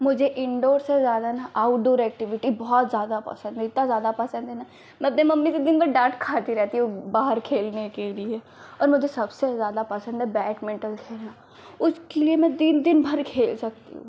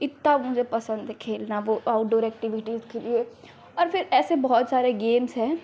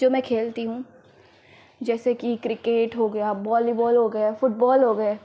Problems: constant background noise